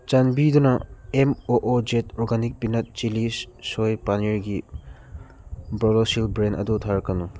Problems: background sounds at intervals